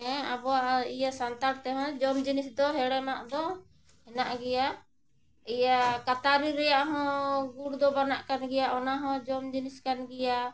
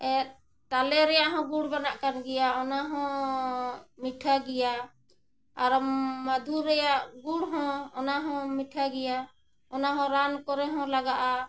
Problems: none marked